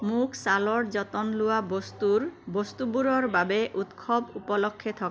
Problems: constant background noise